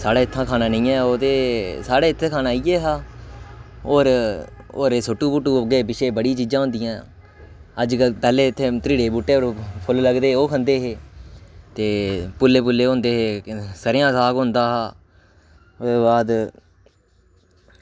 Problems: none marked